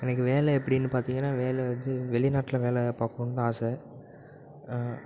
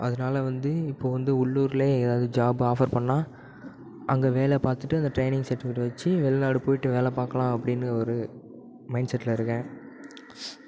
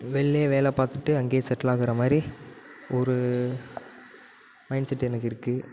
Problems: background sounds at intervals